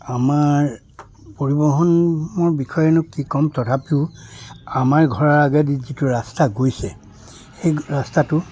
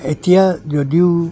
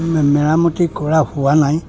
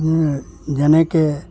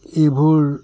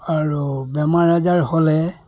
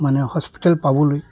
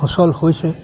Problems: background sounds at intervals